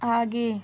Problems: none marked